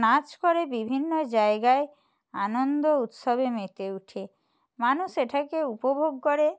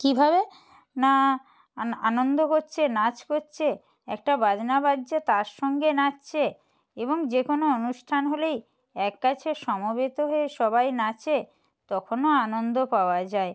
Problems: none marked